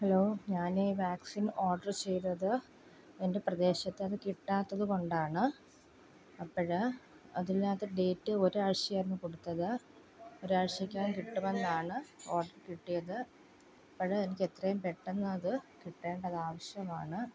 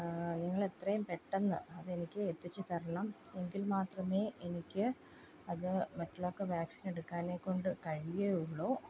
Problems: constant background noise, low volume